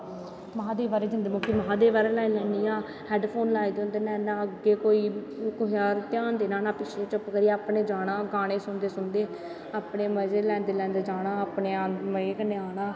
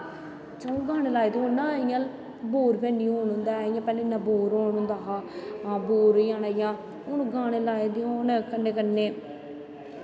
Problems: constant background noise, echo